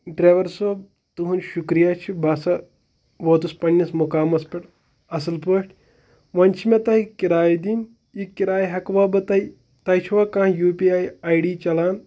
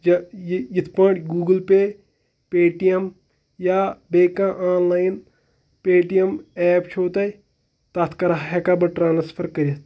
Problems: none marked